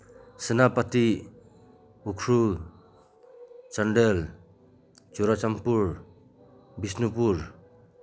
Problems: none marked